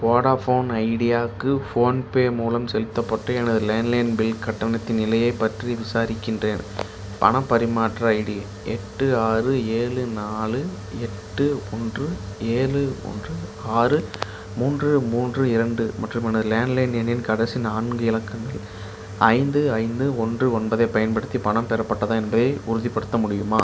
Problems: background sounds at intervals